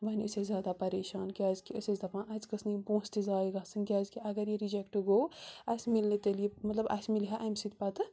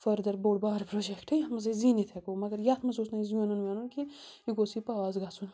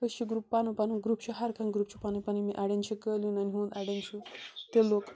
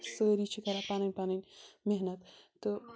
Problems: constant background noise